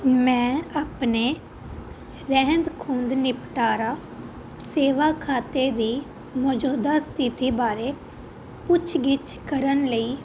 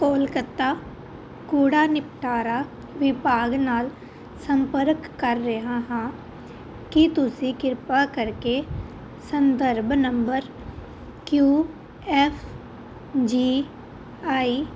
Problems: constant background noise